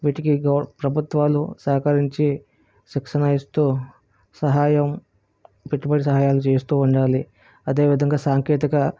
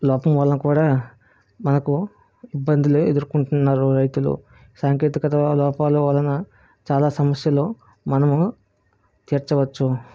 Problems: none marked